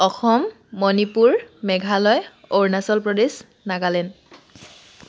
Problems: background sounds at intervals